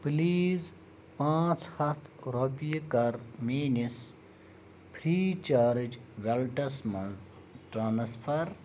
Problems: none marked